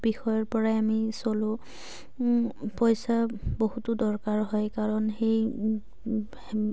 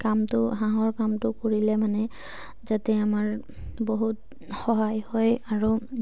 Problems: low volume